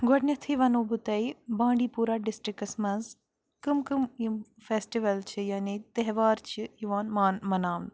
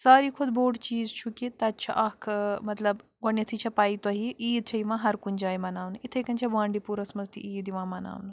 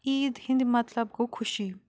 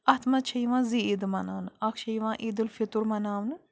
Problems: background sounds at intervals